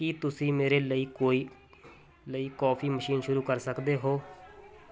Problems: constant background noise